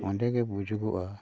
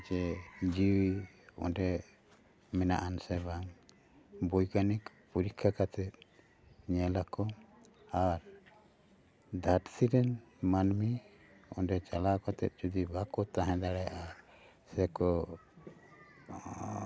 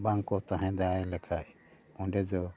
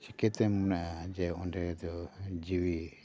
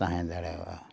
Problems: none marked